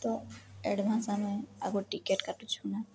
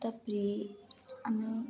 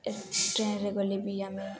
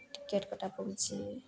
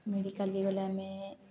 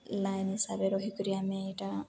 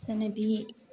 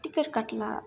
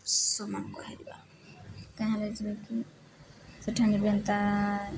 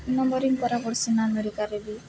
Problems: none marked